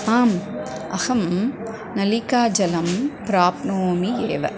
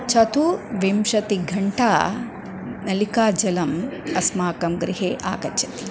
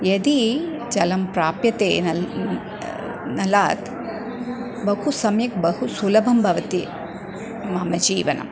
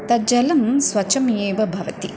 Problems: background sounds at intervals